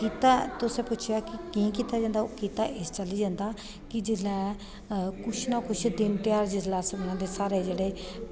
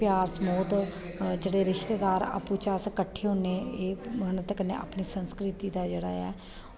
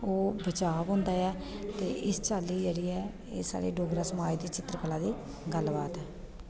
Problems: echo